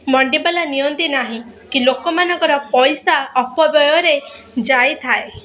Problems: constant background noise, continuous background conversations